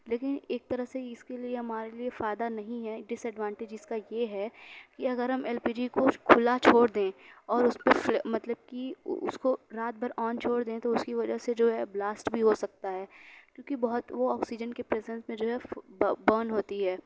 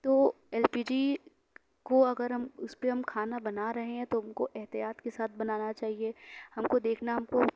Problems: none marked